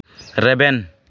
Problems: constant background noise